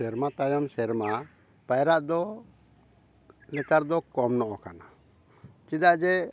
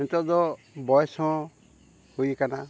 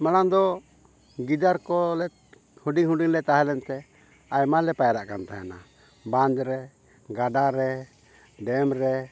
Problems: background sounds at intervals